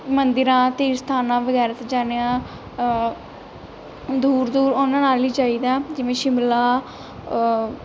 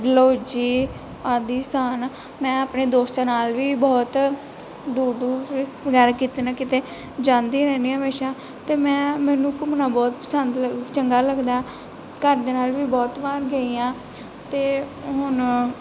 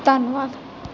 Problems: background sounds at intervals